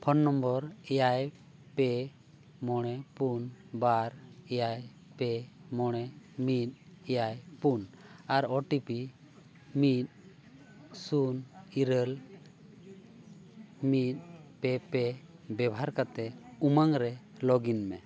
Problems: none marked